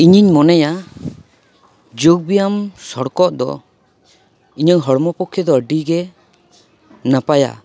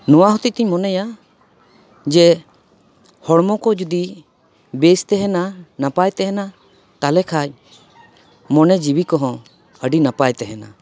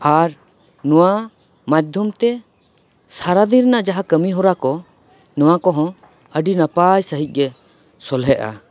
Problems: background sounds at intervals